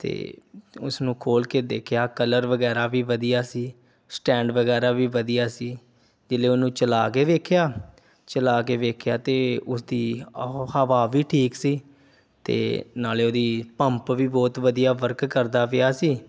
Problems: none marked